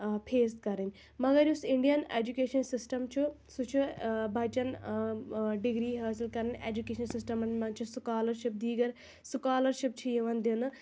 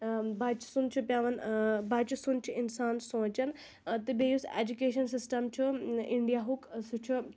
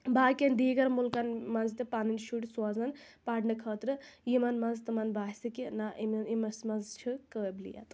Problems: constant background noise